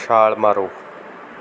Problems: none marked